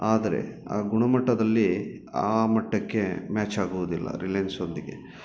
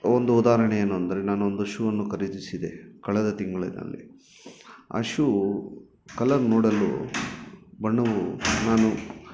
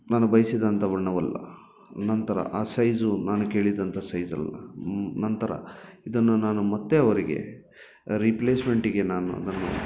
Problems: background sounds at intervals